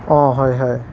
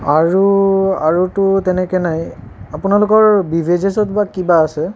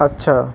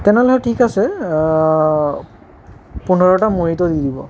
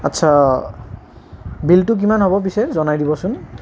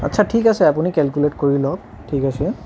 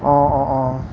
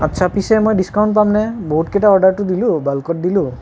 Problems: constant background noise